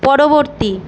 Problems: none marked